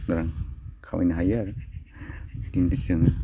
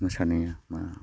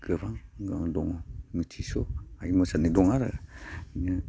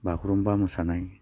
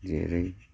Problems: constant background noise